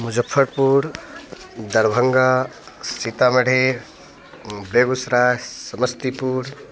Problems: background sounds at intervals